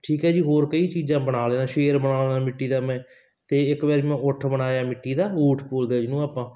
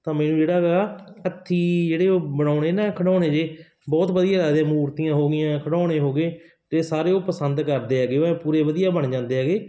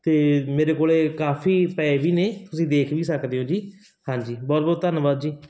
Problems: constant background noise